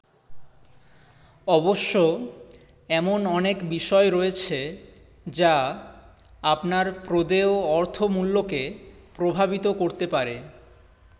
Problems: none marked